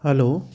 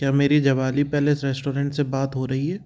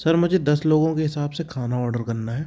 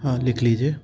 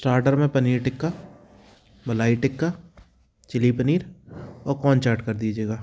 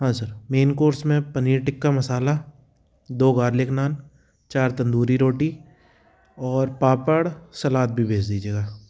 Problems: background sounds at intervals